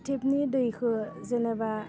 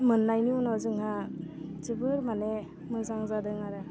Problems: none marked